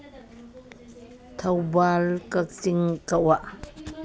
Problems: background conversations at intervals